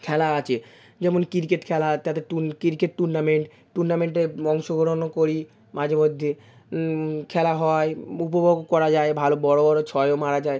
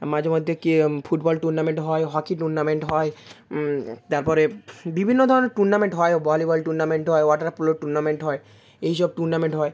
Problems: none marked